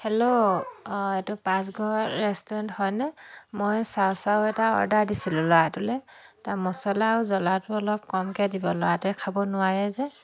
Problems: continuous background conversations